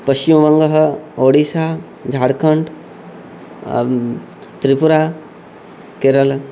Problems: constant background noise